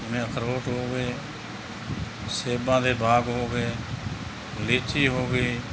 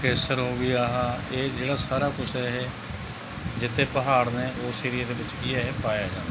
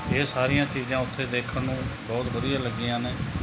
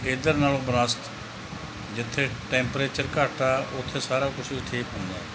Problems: constant background noise